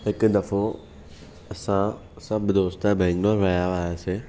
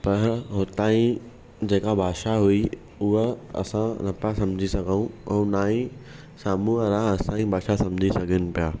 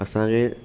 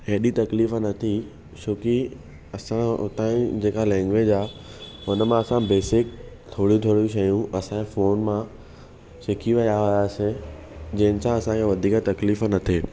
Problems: none marked